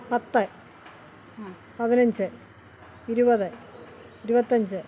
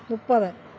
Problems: constant background noise